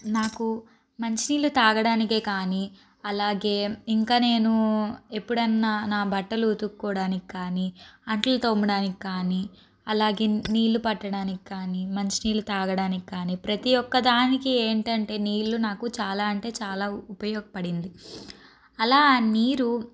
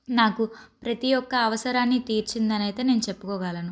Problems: constant background noise